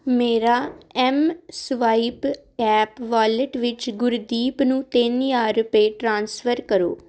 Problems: none marked